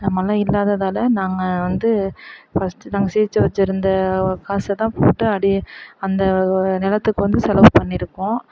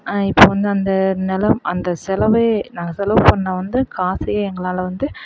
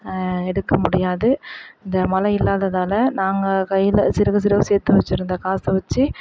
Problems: background sounds at intervals